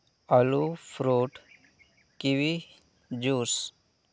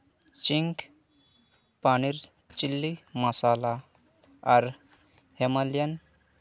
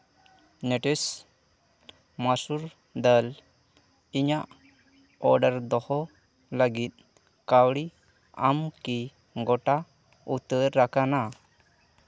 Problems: constant background noise